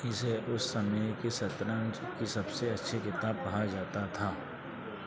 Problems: none marked